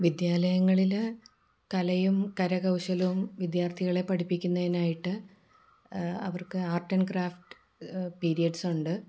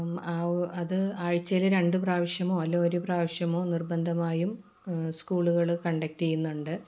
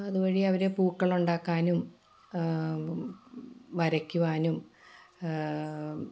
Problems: low volume